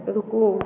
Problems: constant background noise